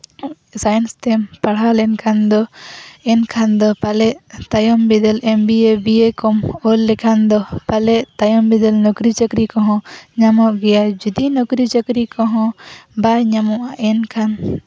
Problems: constant background noise, background conversations at intervals